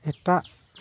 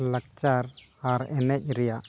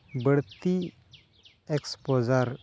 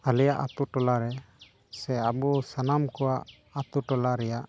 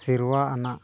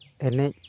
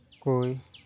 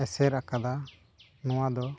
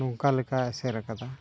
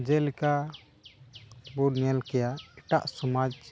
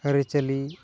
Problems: background sounds at intervals